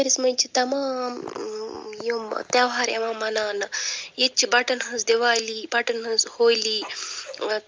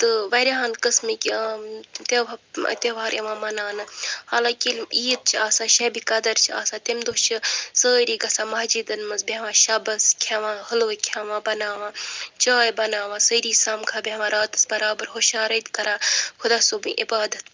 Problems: background sounds at intervals